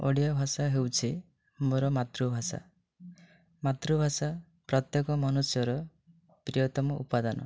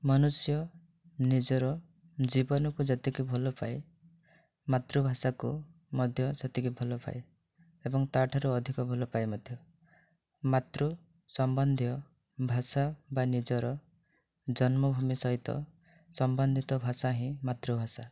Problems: none marked